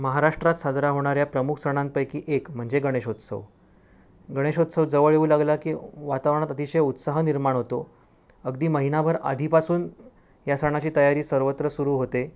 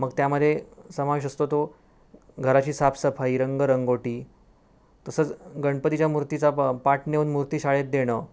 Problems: none marked